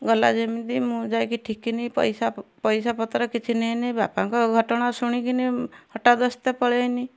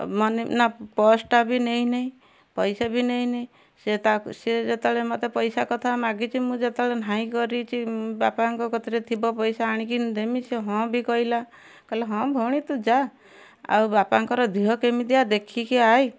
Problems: none marked